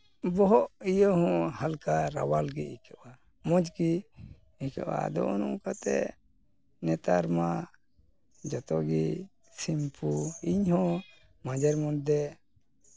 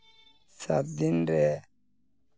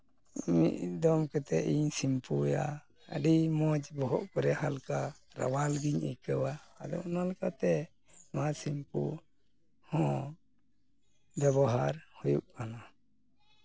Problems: none marked